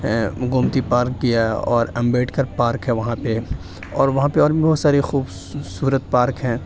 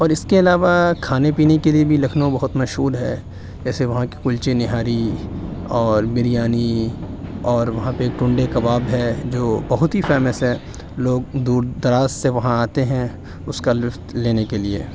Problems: none marked